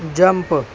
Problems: constant background noise